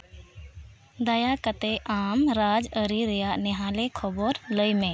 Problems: background sounds at intervals